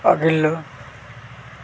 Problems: constant background noise